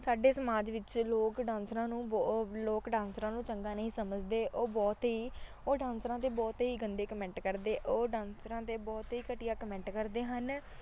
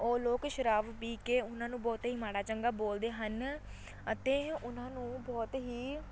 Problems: none marked